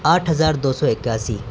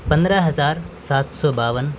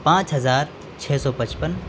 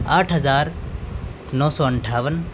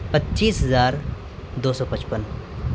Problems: constant background noise